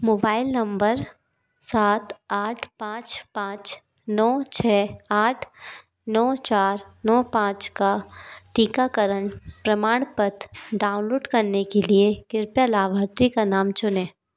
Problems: background sounds at intervals, background conversations at intervals